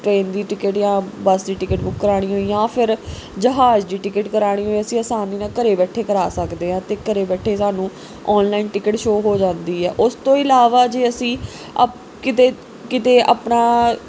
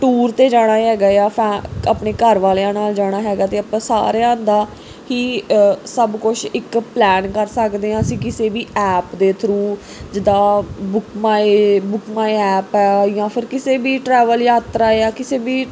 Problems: none marked